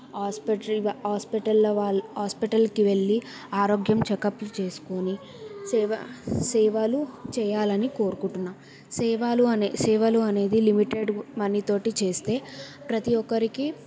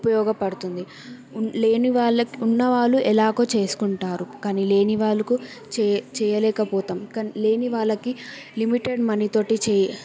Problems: none marked